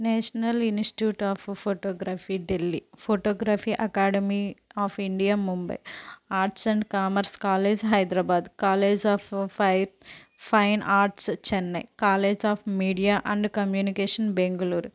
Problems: background sounds at intervals